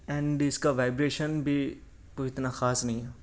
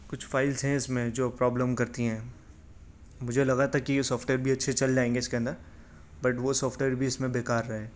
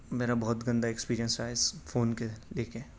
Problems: none marked